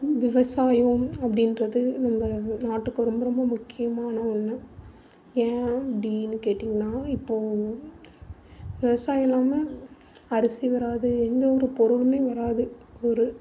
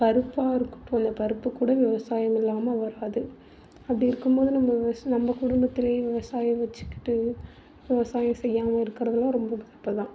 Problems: background sounds at intervals, low volume